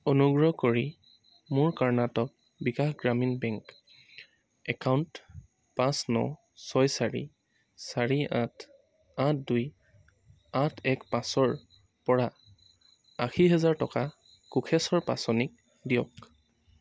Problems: constant background noise